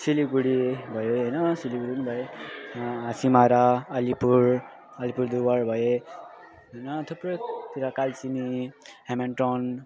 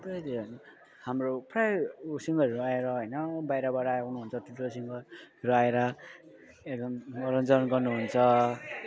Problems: constant background noise